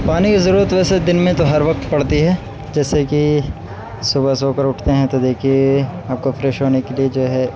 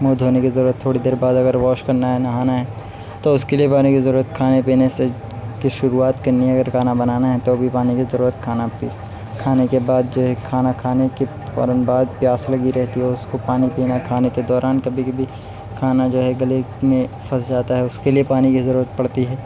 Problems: none marked